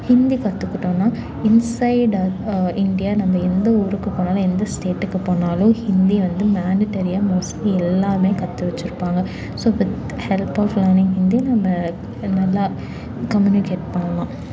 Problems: none marked